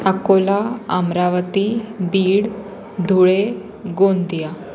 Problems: constant background noise, continuous background conversations